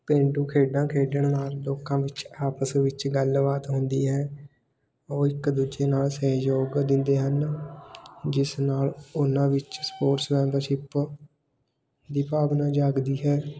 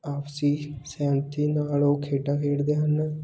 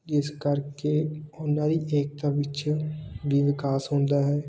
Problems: none marked